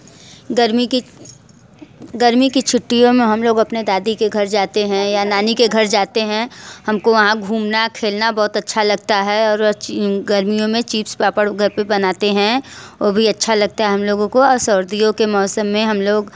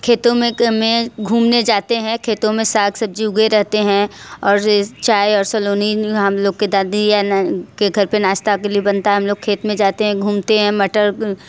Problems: constant background noise